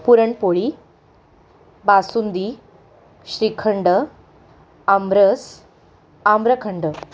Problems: none marked